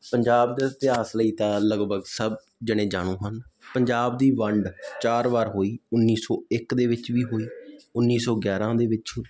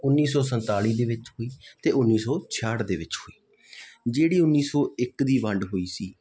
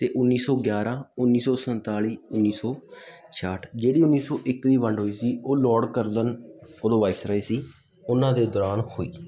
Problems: constant background noise